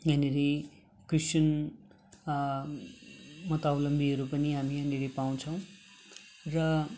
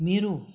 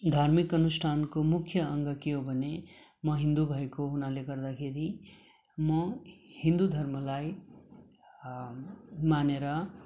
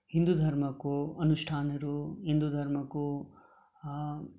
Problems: none marked